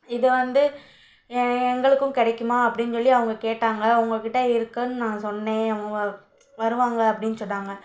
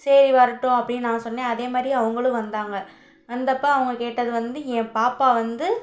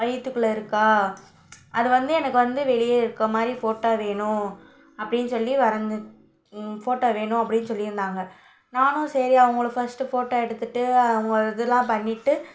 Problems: none marked